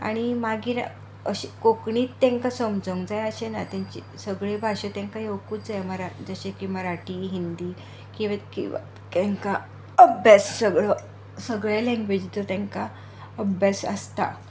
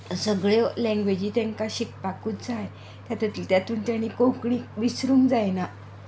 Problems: constant background noise